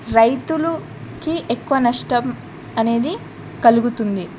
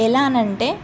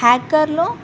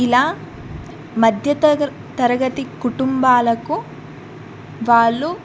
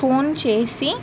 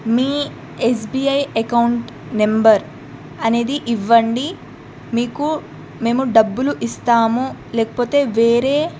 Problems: background sounds at intervals